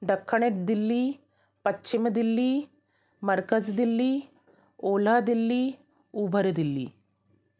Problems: constant background noise